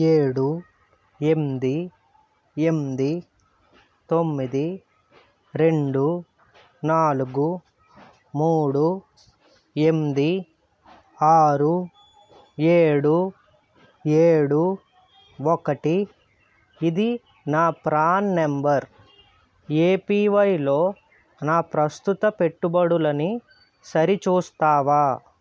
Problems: none marked